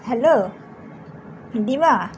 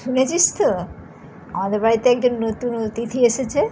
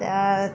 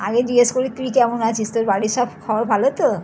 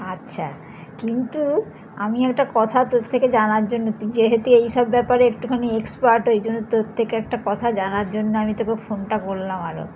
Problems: background sounds at intervals